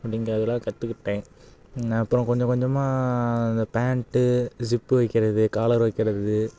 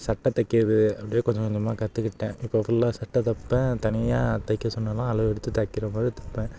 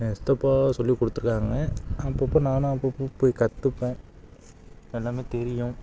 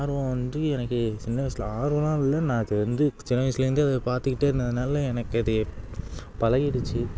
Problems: background sounds at intervals